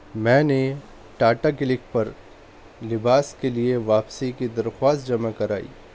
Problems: constant background noise